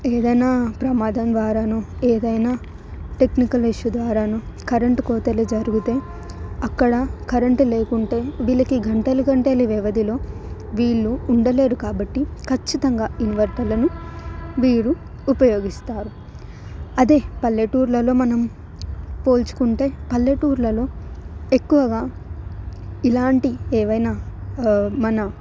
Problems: background sounds at intervals